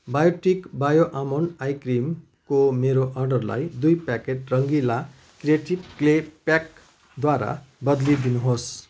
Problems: constant background noise, continuous background conversations